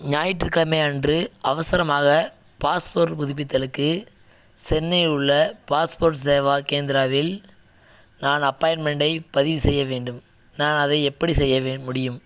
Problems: background sounds at intervals